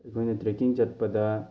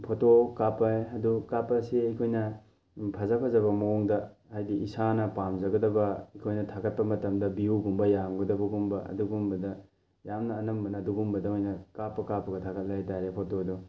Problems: none marked